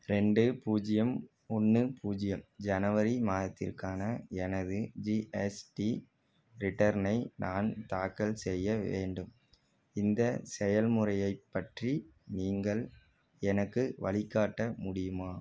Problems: none marked